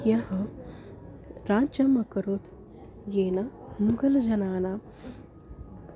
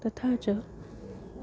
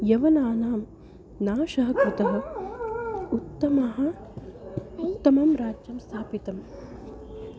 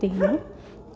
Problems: constant background noise